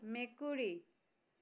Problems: none marked